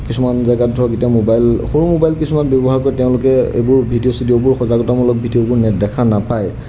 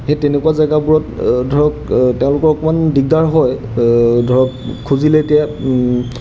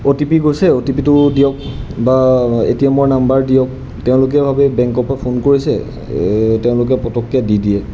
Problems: background sounds at intervals